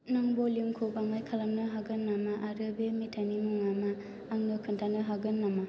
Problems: low volume